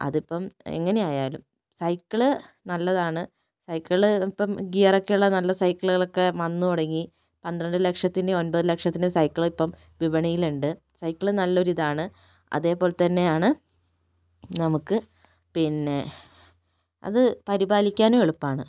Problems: none marked